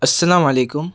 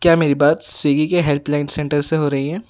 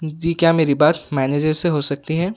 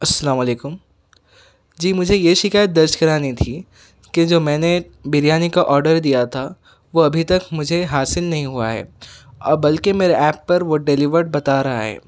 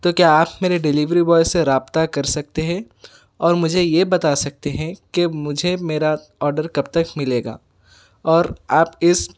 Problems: none marked